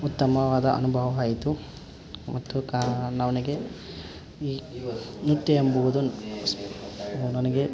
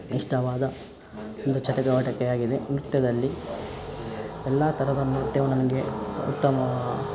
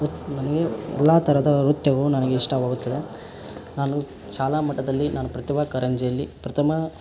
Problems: background sounds at intervals